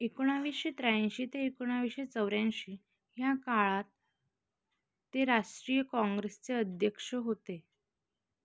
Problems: background sounds at intervals